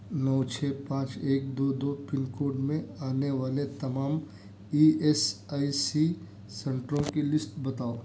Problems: background sounds at intervals